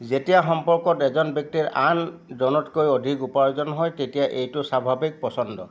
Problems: none marked